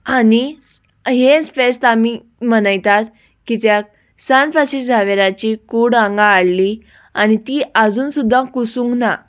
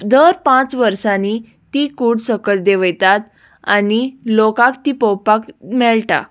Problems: background sounds at intervals